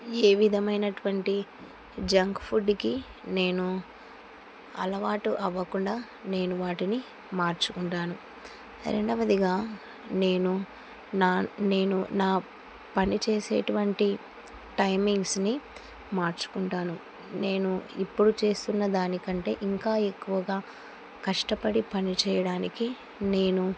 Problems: constant background noise